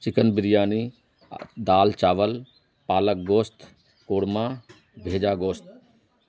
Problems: none marked